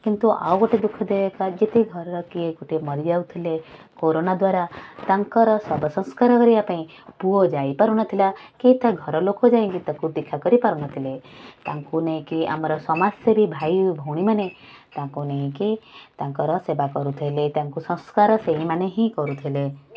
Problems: constant background noise